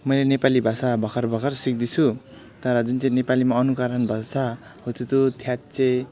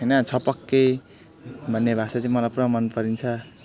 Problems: background sounds at intervals